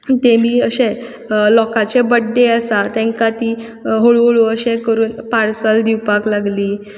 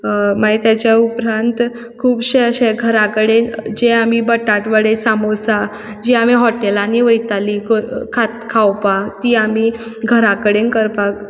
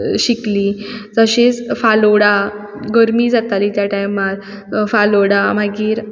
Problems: background sounds at intervals